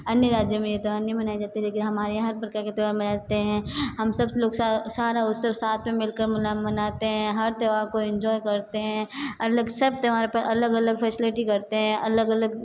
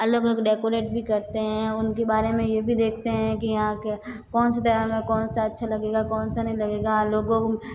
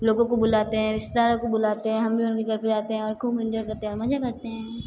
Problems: constant background noise